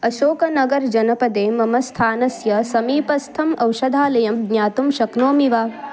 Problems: continuous background conversations